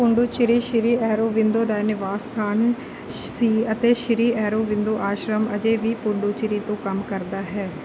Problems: constant background noise